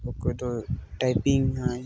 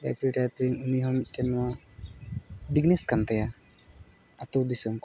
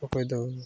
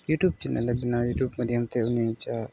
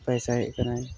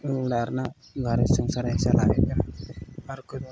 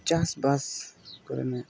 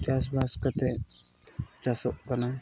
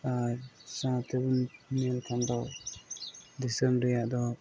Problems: background sounds at intervals